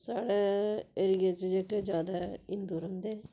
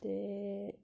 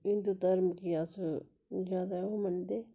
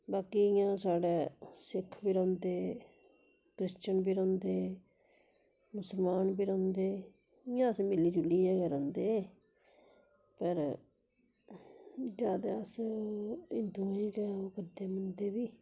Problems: constant background noise